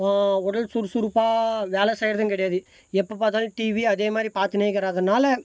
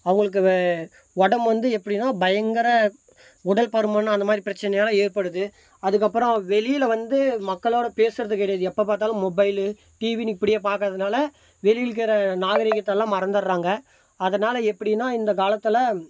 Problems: constant background noise